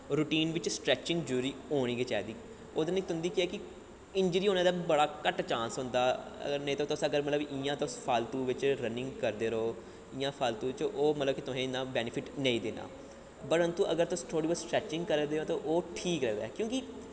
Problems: low volume